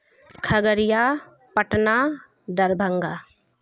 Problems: constant background noise